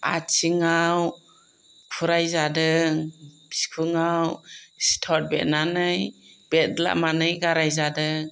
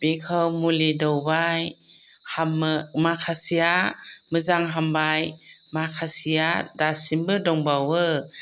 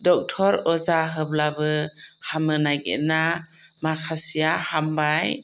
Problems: none marked